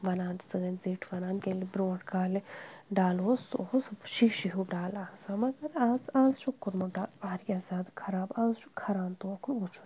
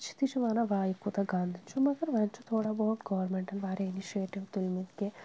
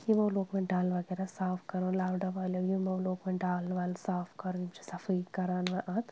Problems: constant background noise